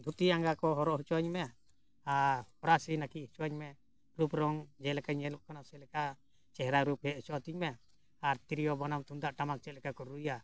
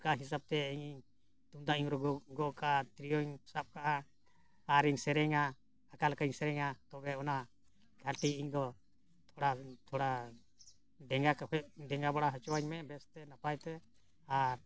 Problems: background sounds at intervals